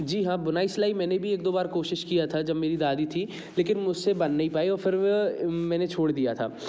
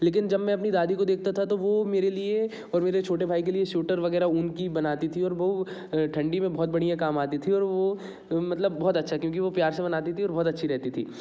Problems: background sounds at intervals